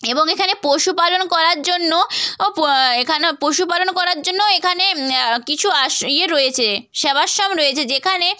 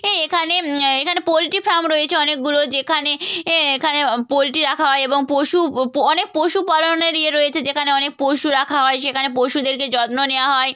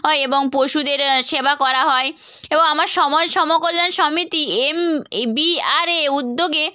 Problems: none marked